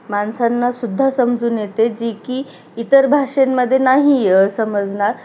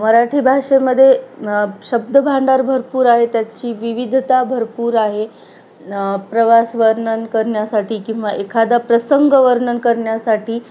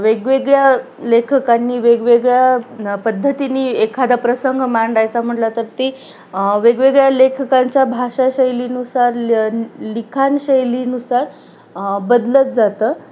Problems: constant background noise